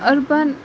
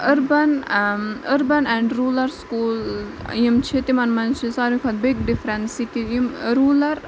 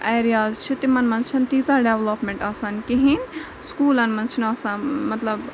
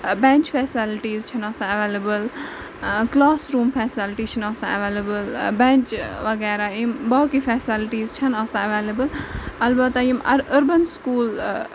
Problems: constant background noise